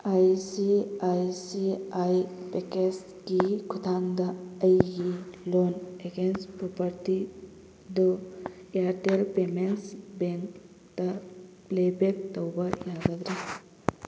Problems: constant background noise